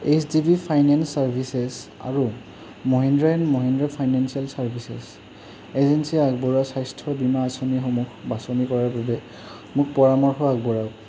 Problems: constant background noise